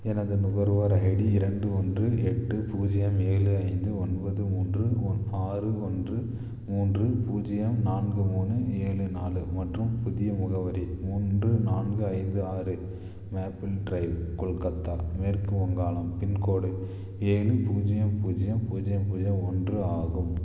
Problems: none marked